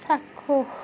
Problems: none marked